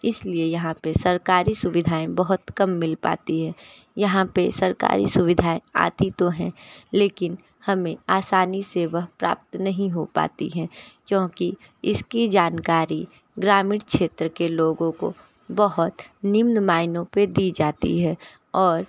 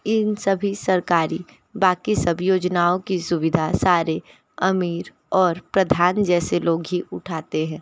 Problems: background sounds at intervals, background conversations at intervals